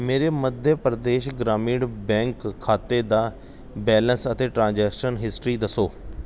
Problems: background sounds at intervals